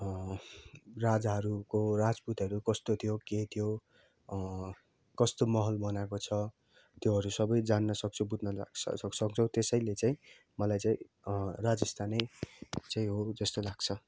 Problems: none marked